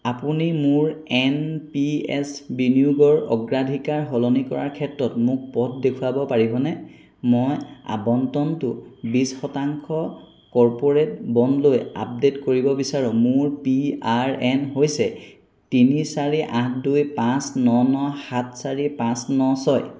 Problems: none marked